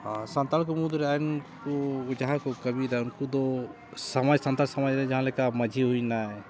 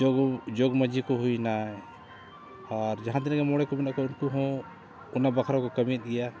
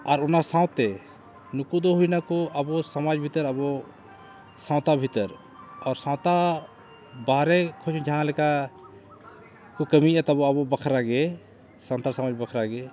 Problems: constant background noise